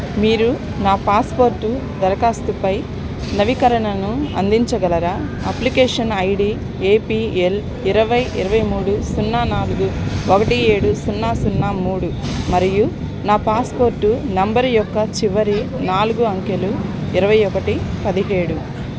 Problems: background sounds at intervals, background conversations at intervals